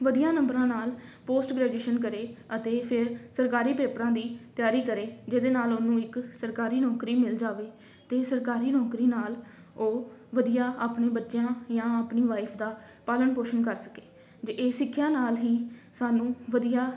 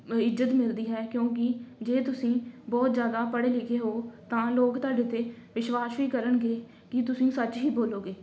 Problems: none marked